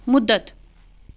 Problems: background sounds at intervals